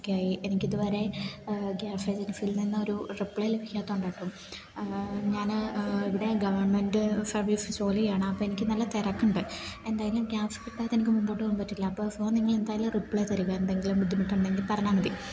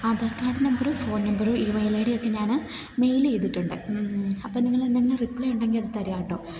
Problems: background sounds at intervals